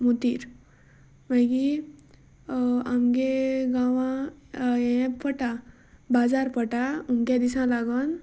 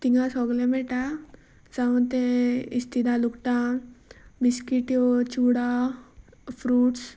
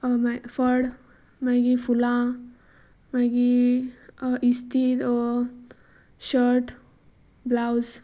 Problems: constant background noise